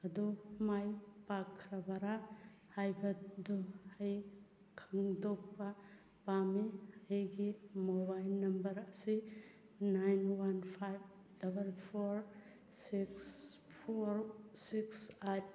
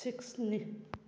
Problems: background sounds at intervals